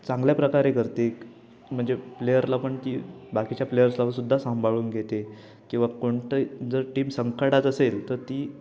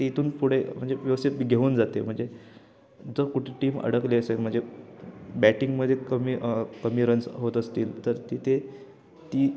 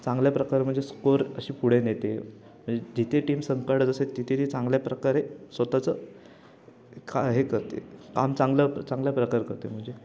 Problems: background sounds at intervals, background conversations at intervals